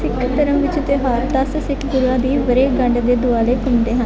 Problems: none marked